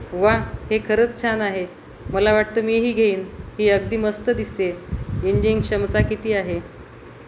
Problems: constant background noise